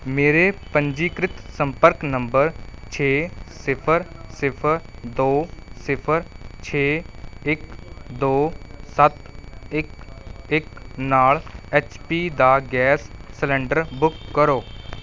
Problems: none marked